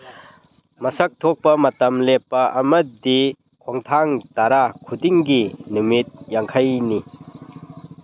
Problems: background sounds at intervals